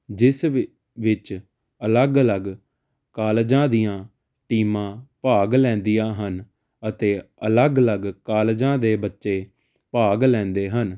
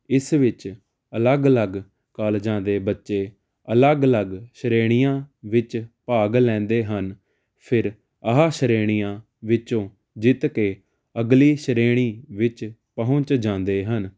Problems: constant background noise